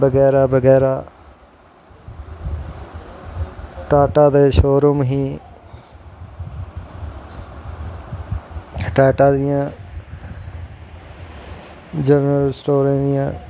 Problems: constant background noise